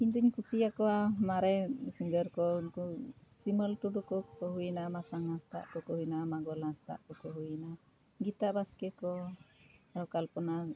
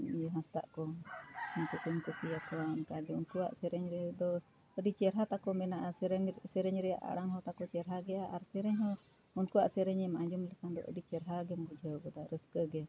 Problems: none marked